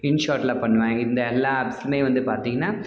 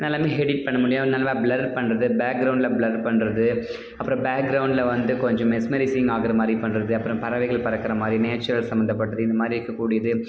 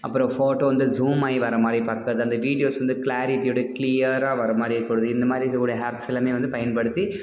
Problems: background sounds at intervals